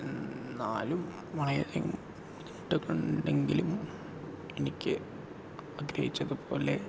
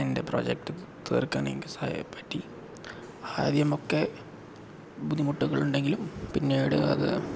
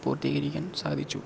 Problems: background sounds at intervals